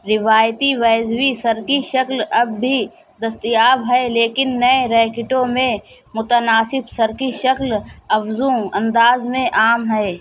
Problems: background conversations at intervals